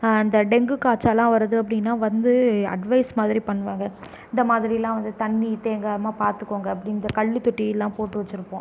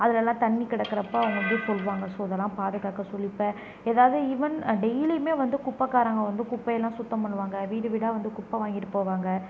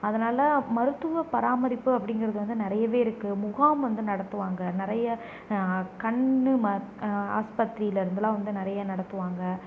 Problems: none marked